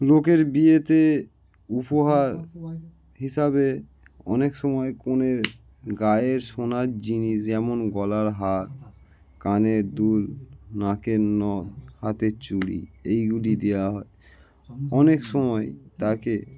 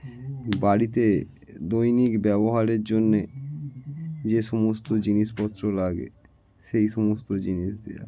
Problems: none marked